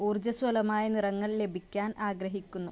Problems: none marked